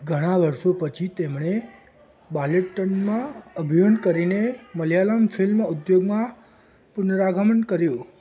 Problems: background sounds at intervals